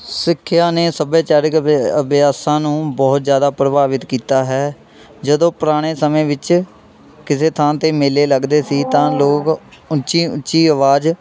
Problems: constant background noise